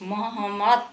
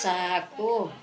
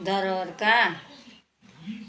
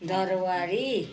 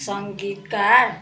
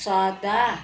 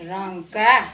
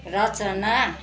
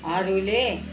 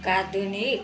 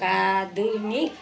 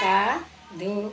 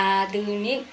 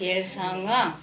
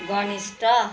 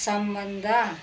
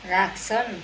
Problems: constant background noise, continuous background conversations